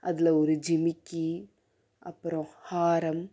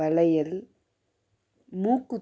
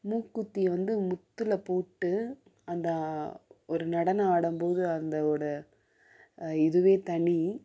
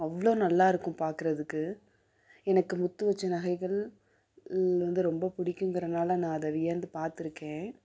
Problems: background sounds at intervals